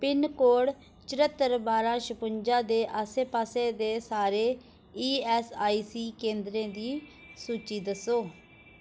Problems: none marked